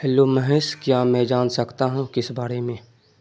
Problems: constant background noise